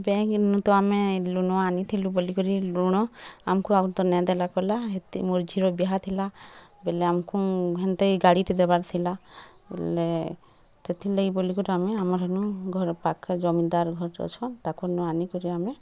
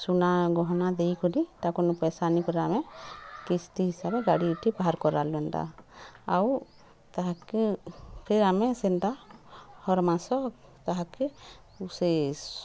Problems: constant background noise, continuous background conversations